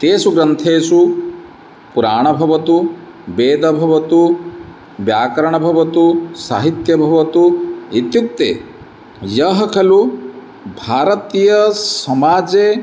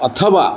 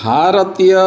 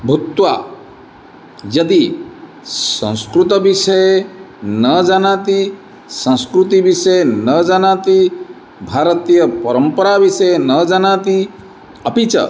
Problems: none marked